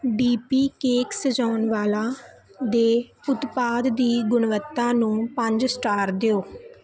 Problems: constant background noise